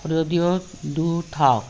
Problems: background sounds at intervals